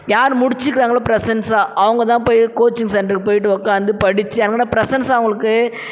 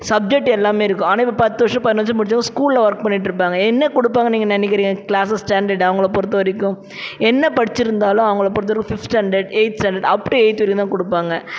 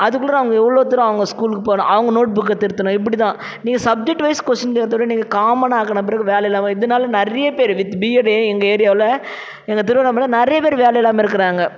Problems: none marked